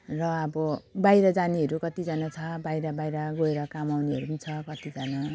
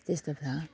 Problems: constant background noise